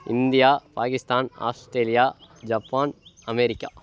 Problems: none marked